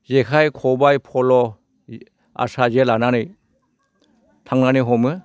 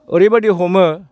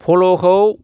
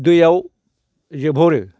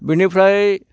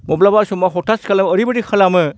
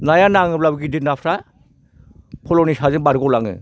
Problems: constant background noise